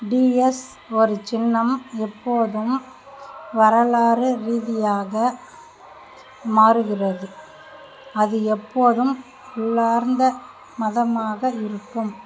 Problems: constant background noise